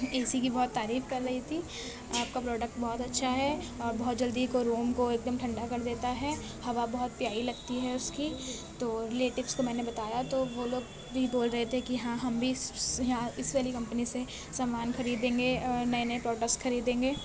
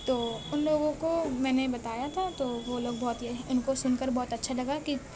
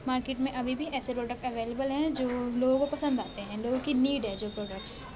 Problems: constant background noise